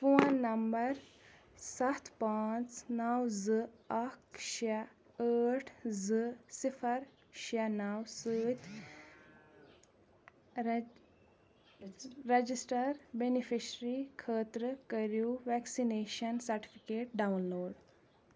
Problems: background conversations at intervals